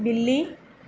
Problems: none marked